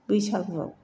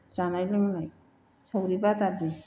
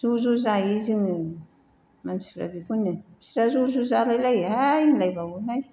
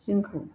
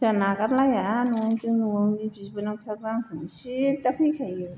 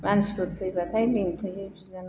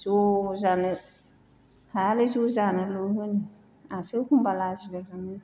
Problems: none marked